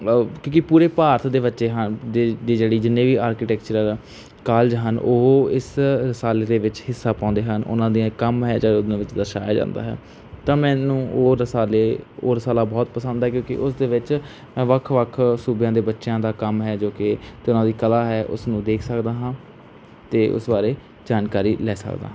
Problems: background sounds at intervals